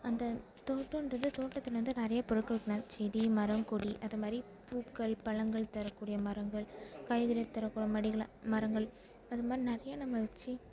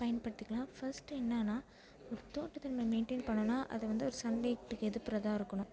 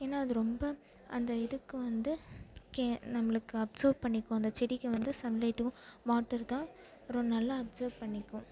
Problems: constant background noise, background conversations at intervals